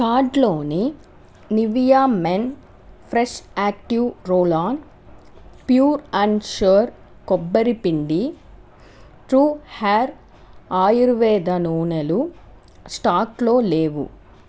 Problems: none marked